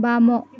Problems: continuous background conversations